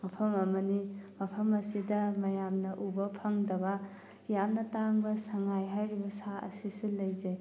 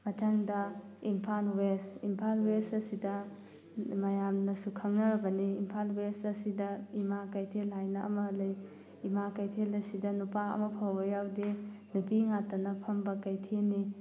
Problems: none marked